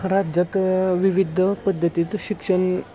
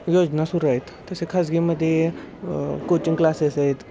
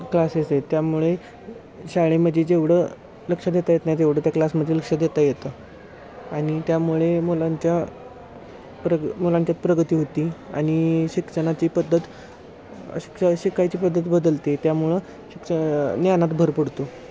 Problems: constant background noise, continuous background conversations